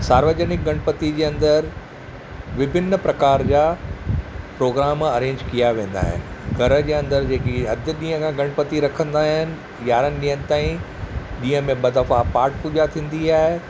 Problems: none marked